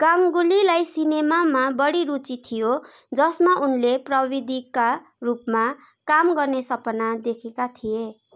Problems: constant background noise, continuous background conversations